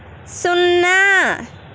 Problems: none marked